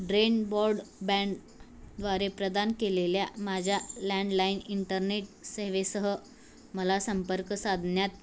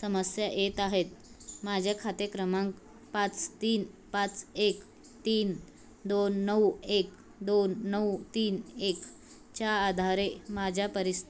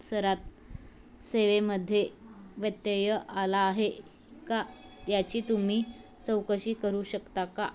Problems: constant background noise